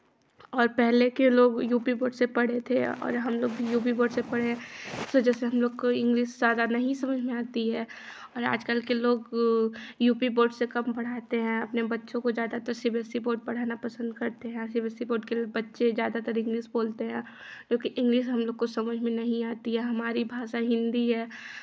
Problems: constant background noise, continuous background conversations